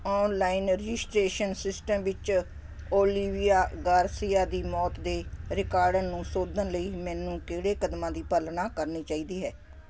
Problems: constant background noise